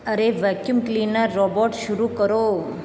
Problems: constant background noise